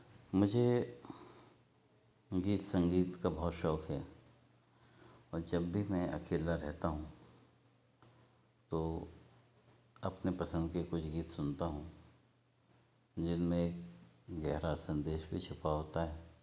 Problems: none marked